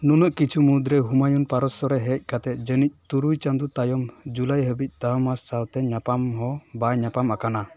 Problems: none marked